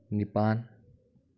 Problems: low volume